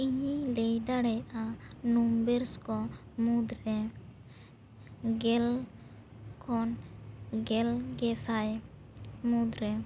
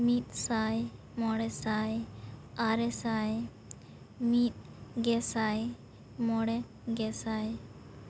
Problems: constant background noise